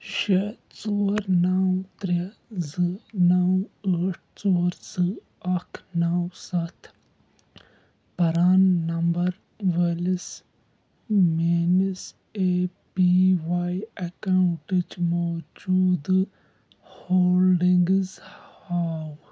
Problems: background sounds at intervals